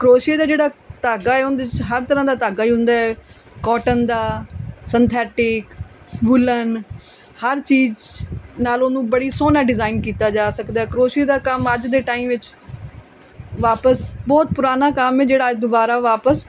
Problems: background conversations at intervals